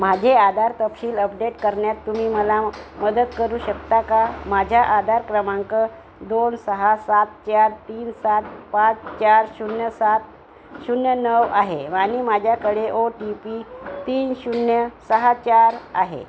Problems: constant background noise